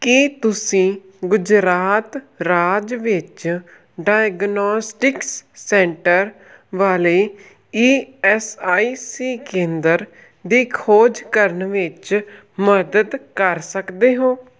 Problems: none marked